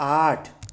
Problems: constant background noise